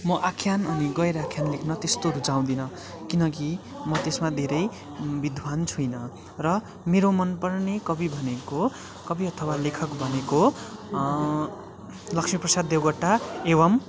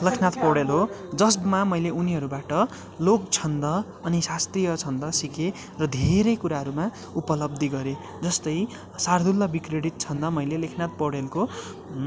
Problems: constant background noise